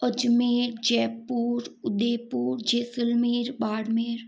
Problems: none marked